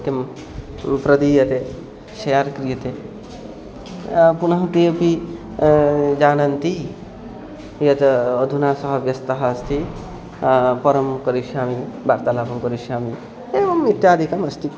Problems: constant background noise